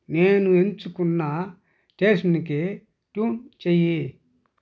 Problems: none marked